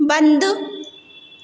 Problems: constant background noise, echo